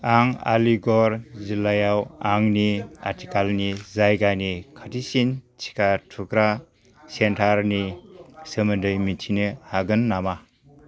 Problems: constant background noise